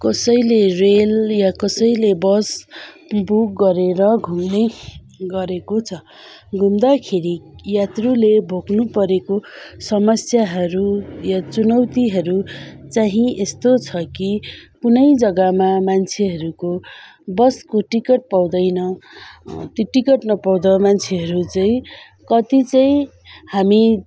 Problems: background sounds at intervals